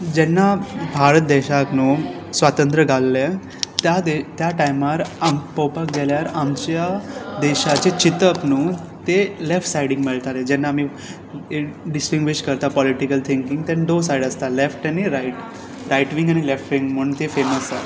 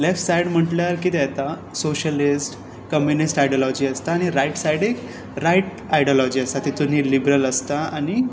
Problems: background sounds at intervals